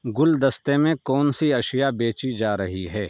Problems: none marked